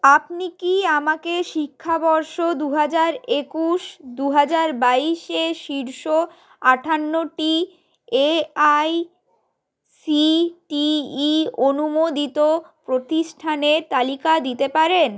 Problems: background sounds at intervals